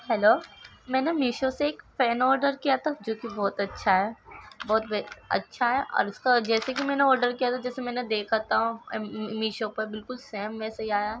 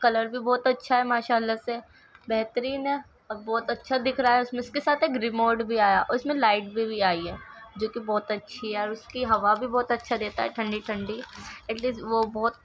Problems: background sounds at intervals, continuous background conversations